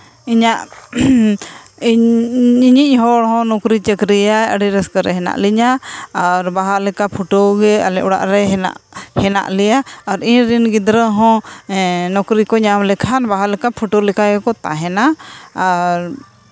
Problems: constant background noise